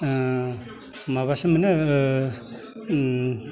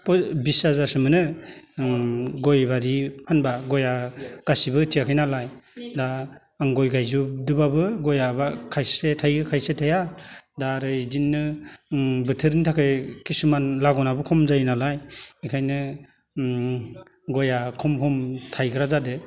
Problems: none marked